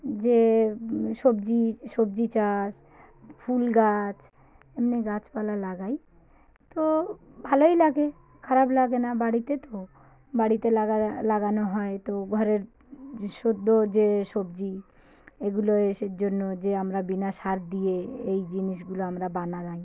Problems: constant background noise, background conversations at intervals